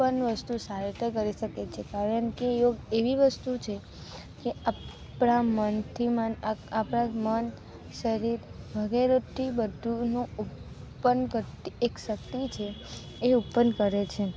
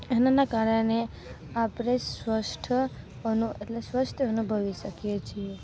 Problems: constant background noise